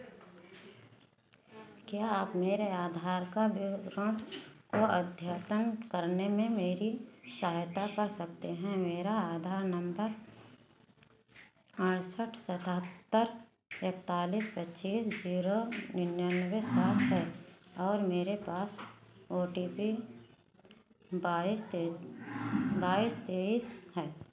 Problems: none marked